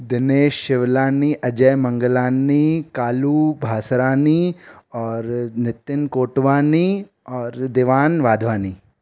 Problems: none marked